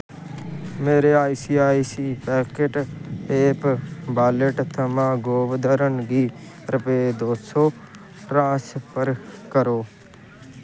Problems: constant background noise